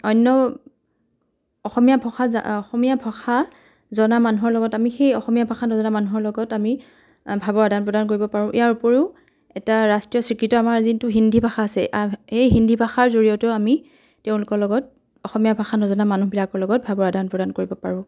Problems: background sounds at intervals, continuous background conversations